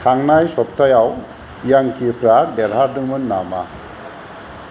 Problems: none marked